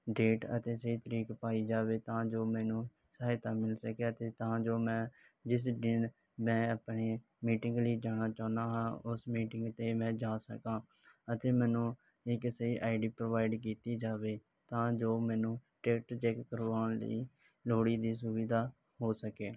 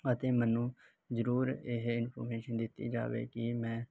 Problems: none marked